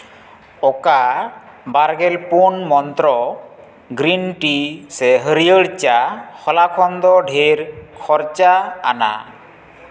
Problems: constant background noise, echo